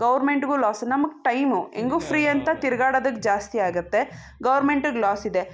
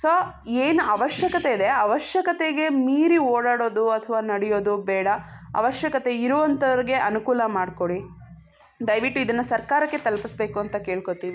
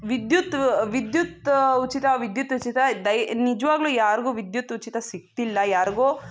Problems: none marked